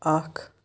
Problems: none marked